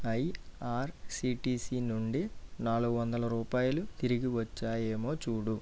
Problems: low volume